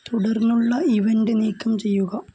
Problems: constant background noise